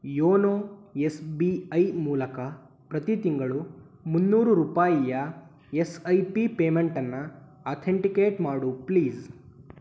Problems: none marked